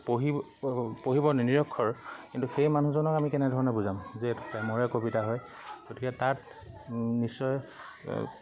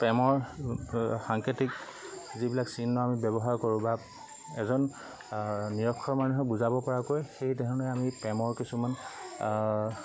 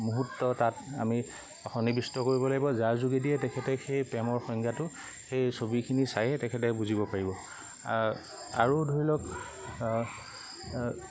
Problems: constant background noise, background conversations at intervals